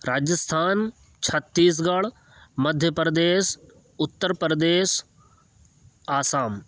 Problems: background sounds at intervals